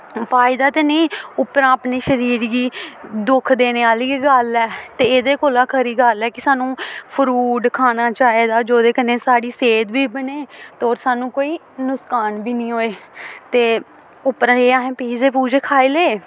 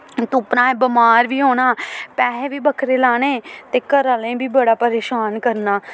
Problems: constant background noise